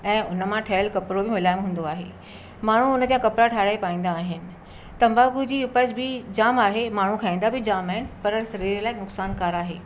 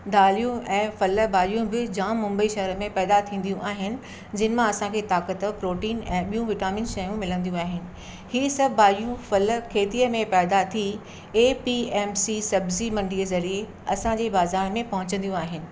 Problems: constant background noise